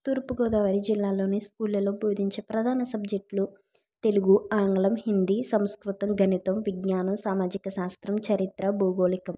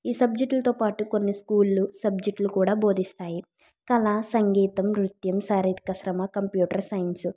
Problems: none marked